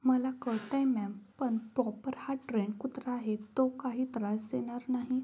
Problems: background sounds at intervals